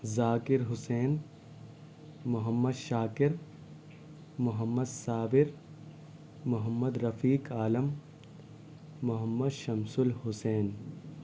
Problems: low volume